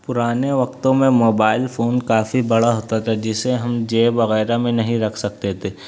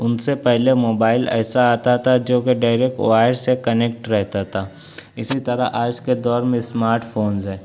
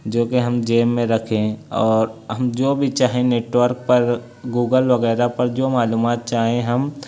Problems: none marked